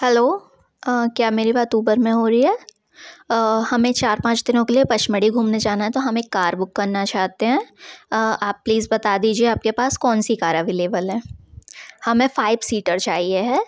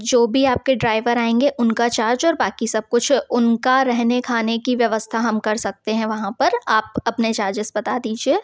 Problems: background sounds at intervals